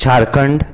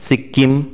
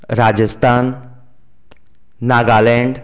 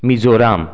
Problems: background sounds at intervals